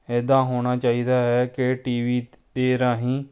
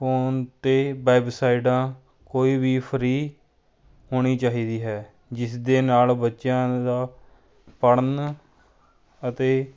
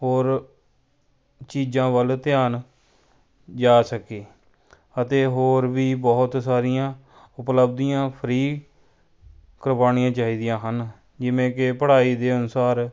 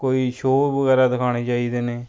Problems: background sounds at intervals